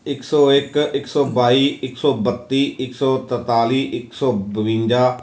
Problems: none marked